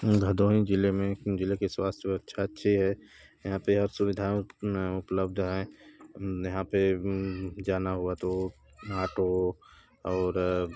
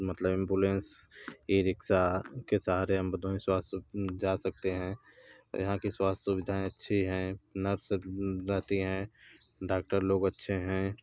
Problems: none marked